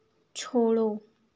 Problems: constant background noise